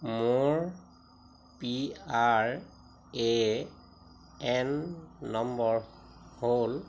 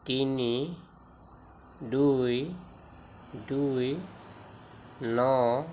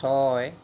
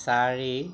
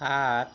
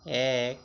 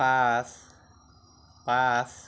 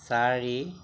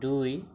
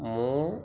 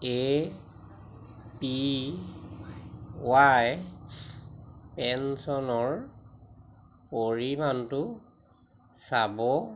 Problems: constant background noise